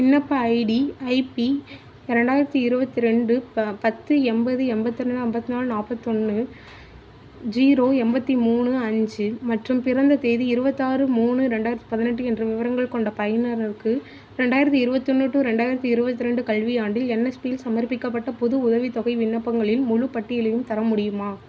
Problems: constant background noise